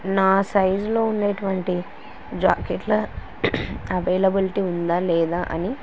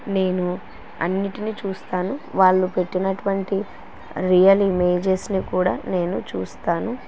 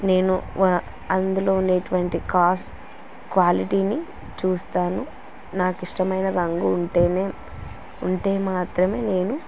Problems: constant background noise